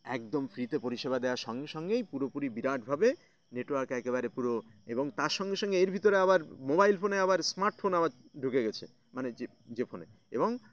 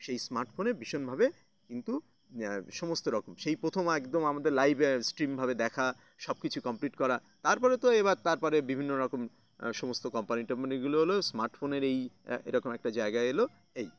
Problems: none marked